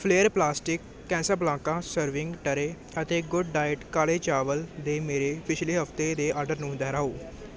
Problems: none marked